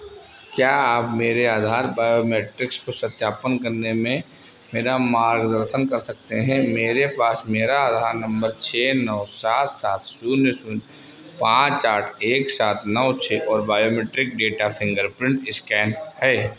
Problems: constant background noise